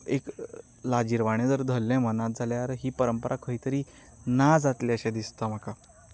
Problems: none marked